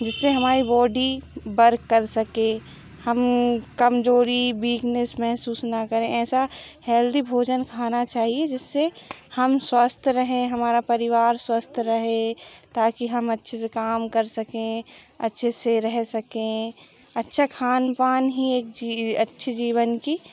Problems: background sounds at intervals